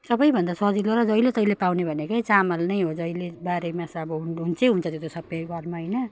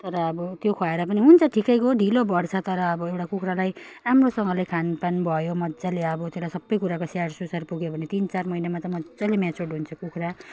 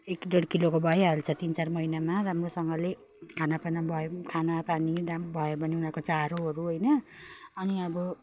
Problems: none marked